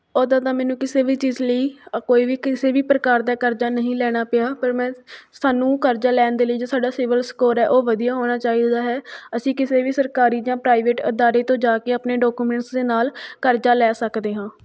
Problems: none marked